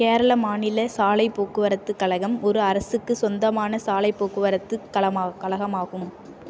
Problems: none marked